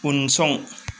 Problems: none marked